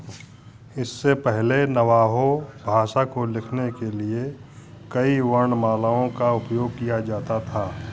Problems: none marked